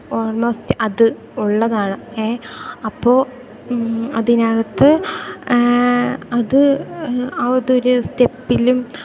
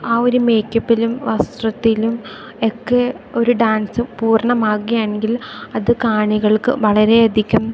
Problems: none marked